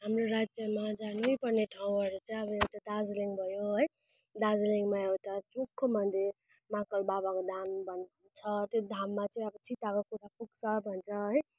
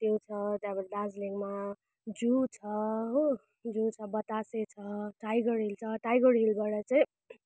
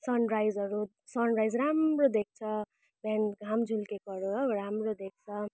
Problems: constant background noise